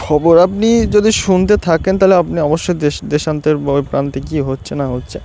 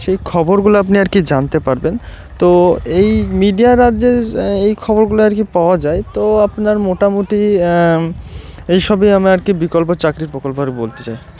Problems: none marked